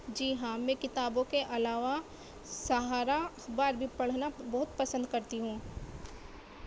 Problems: constant background noise